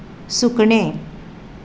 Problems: constant background noise